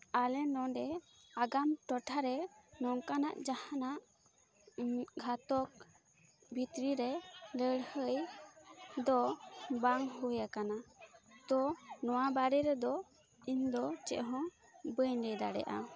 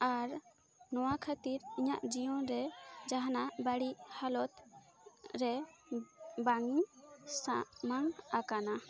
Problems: constant background noise, continuous background conversations